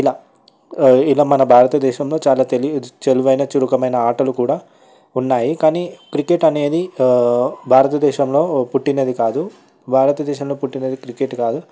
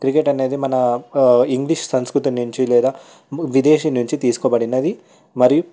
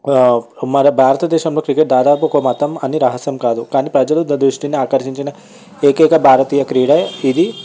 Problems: background sounds at intervals, background conversations at intervals